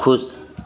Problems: constant background noise, continuous background conversations